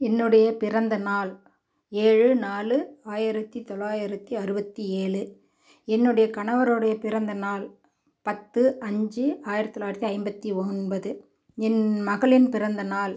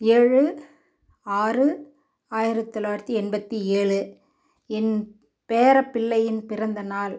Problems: background sounds at intervals